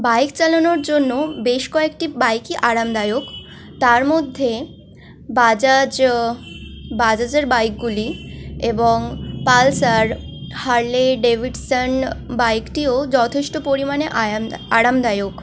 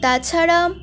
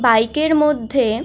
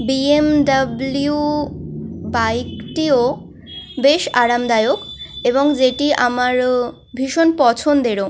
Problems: constant background noise